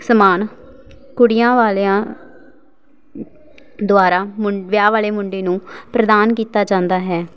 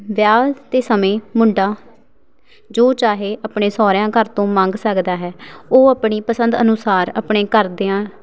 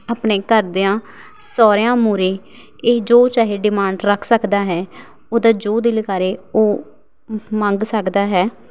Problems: background sounds at intervals